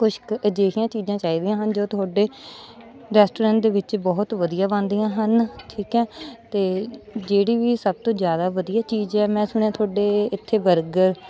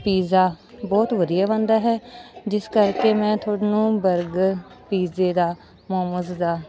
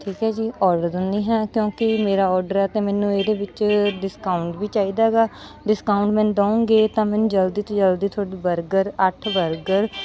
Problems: constant background noise, background conversations at intervals